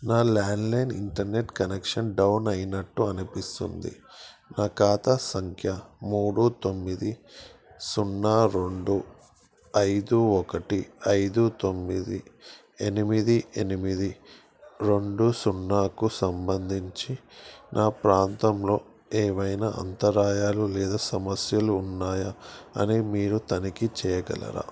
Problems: background sounds at intervals